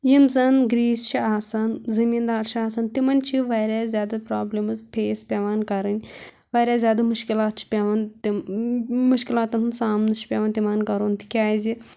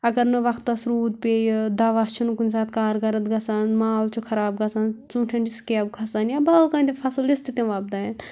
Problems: constant background noise